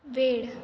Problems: constant background noise